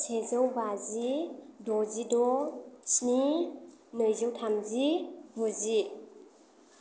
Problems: low volume